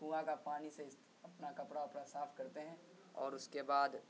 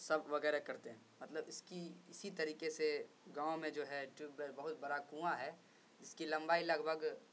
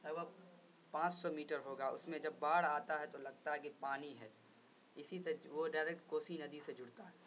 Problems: constant background noise, low volume